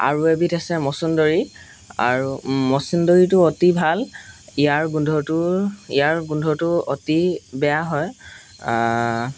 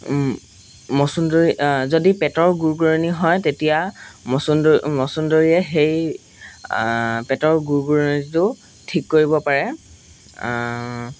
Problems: background sounds at intervals